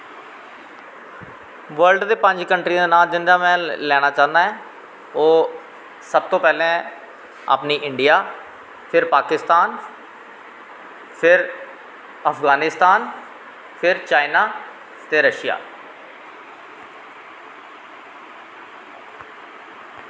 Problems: constant background noise, echo